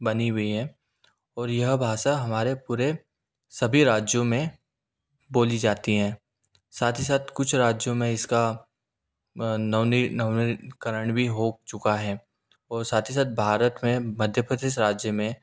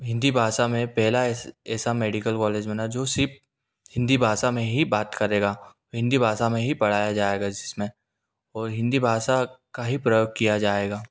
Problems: none marked